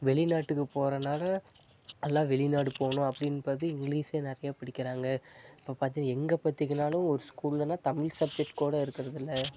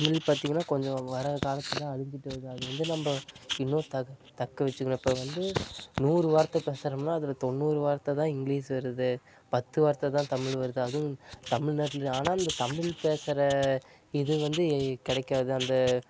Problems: constant background noise